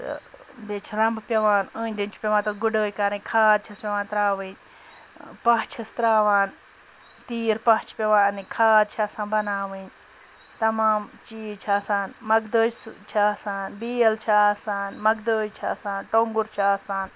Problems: background sounds at intervals, background conversations at intervals